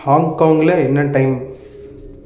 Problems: none marked